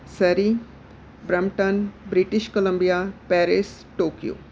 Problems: background sounds at intervals